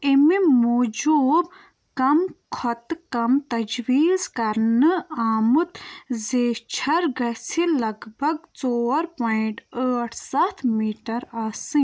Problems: none marked